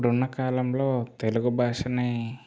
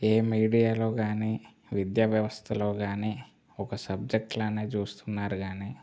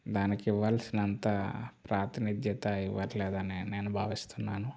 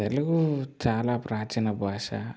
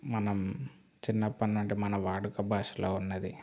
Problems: constant background noise